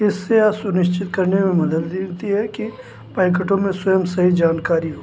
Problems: constant background noise